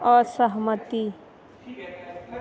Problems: background conversations at intervals